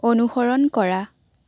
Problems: none marked